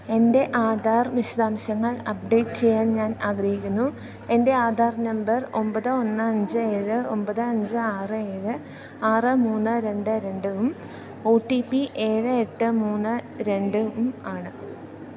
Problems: none marked